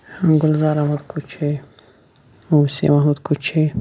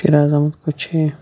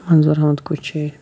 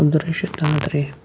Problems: constant background noise